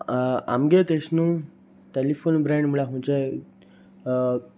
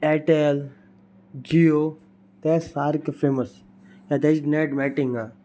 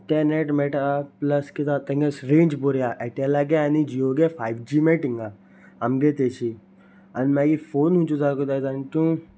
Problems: none marked